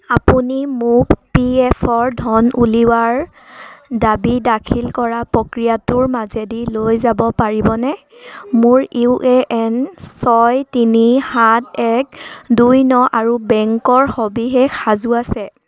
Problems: background sounds at intervals